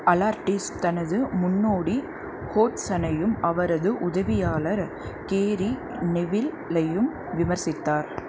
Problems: constant background noise